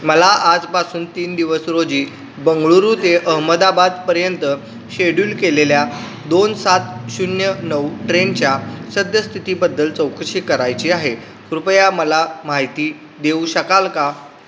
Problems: constant background noise